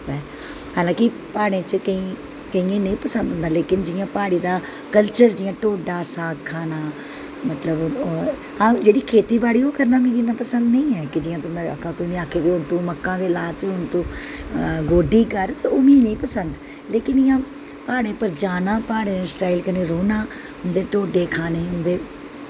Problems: constant background noise